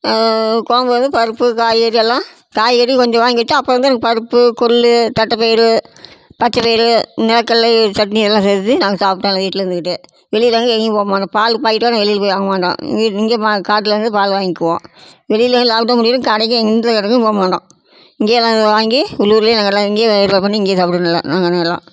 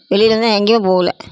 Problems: constant background noise